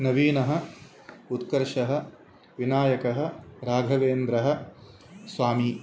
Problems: constant background noise